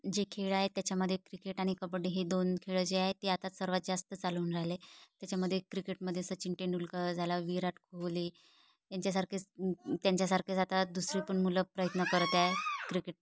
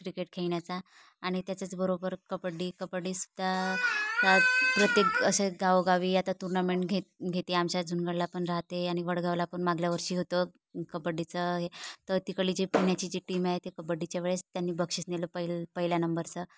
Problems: background sounds at intervals